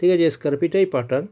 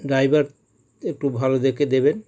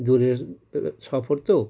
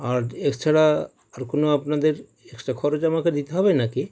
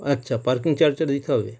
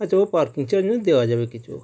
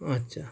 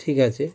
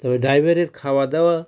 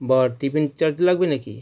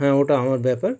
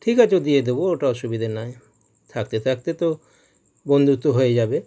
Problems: none marked